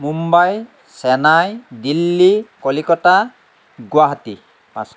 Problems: constant background noise